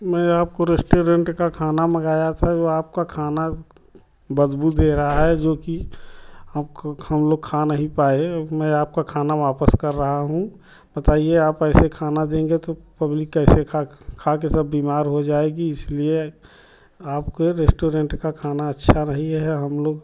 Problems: none marked